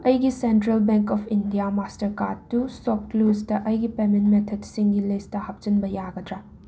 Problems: constant background noise